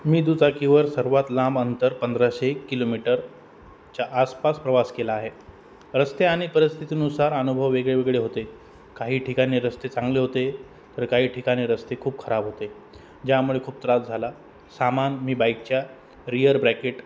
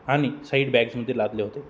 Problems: none marked